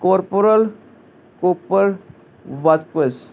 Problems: constant background noise